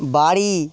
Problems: none marked